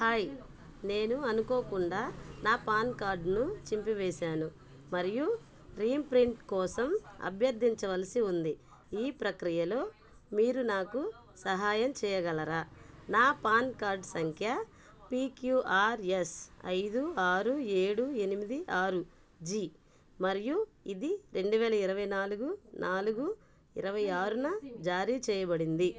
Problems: background conversations at intervals